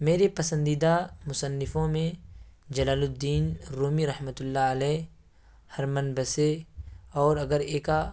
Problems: constant background noise